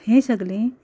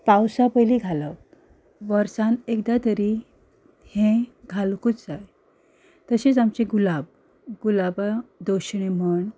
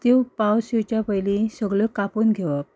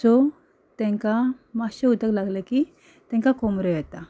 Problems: background sounds at intervals